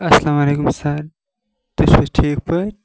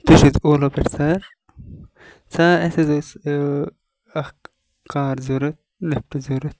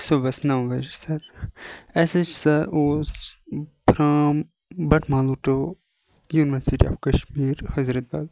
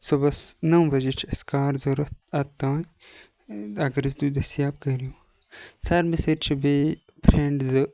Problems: background sounds at intervals